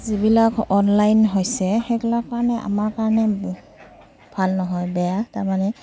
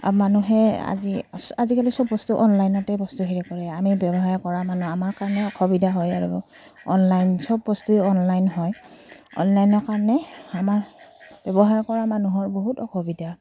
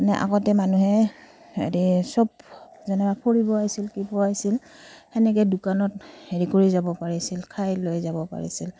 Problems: none marked